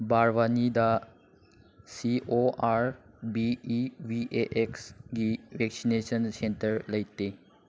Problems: none marked